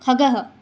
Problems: none marked